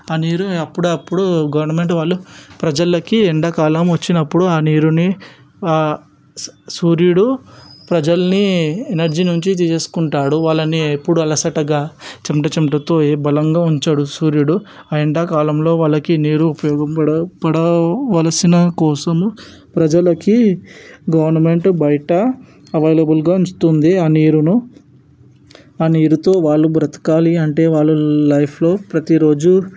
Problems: none marked